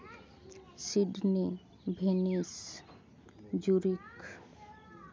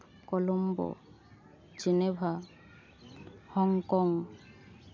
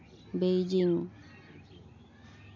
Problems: background sounds at intervals